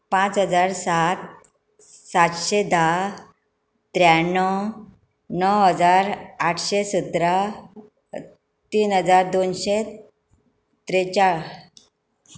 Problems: background sounds at intervals